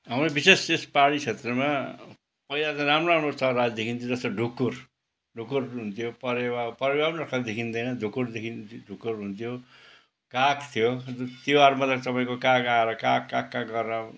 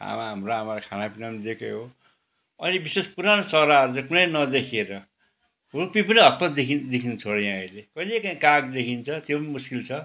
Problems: background sounds at intervals